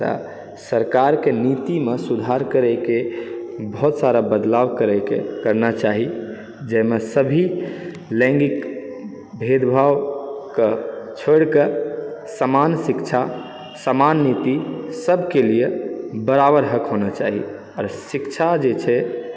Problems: background sounds at intervals